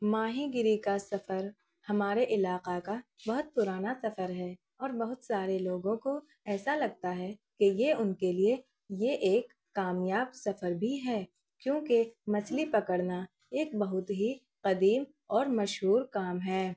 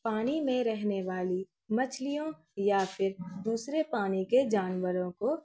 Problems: background sounds at intervals